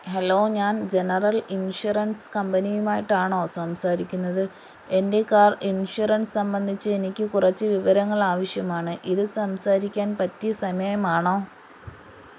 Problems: constant background noise